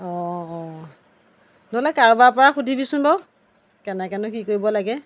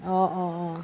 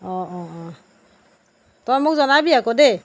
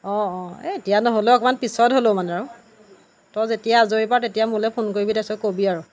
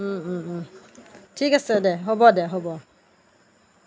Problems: none marked